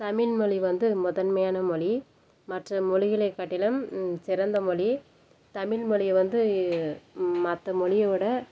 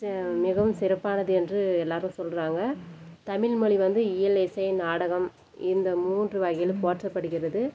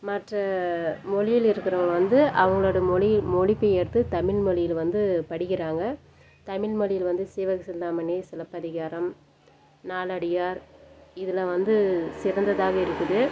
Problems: background sounds at intervals